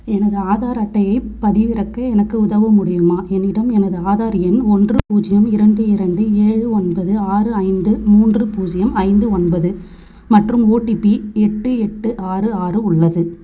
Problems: constant background noise